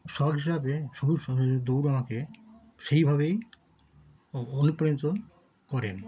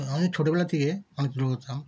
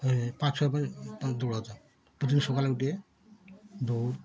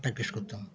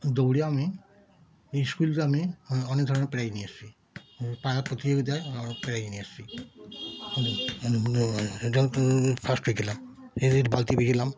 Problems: background sounds at intervals, continuous background conversations